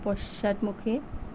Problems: none marked